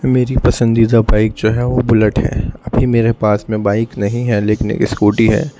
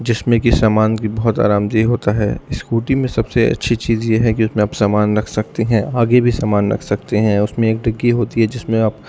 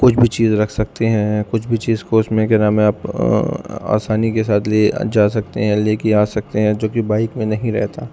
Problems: constant background noise, low volume